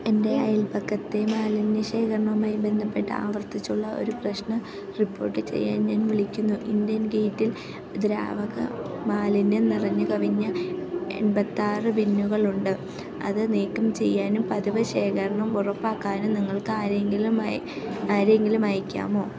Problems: none marked